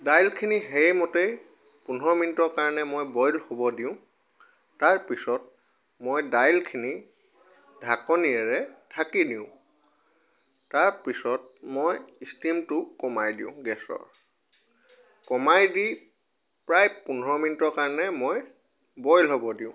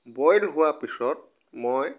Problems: background sounds at intervals